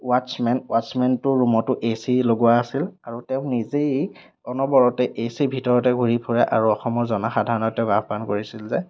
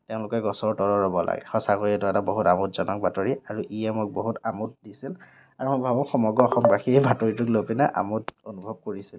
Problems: none marked